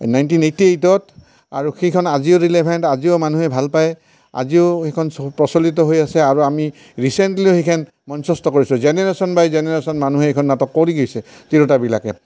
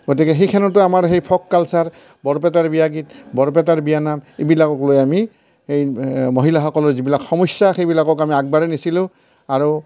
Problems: none marked